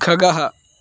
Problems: constant background noise